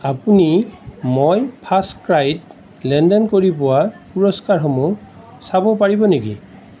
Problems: none marked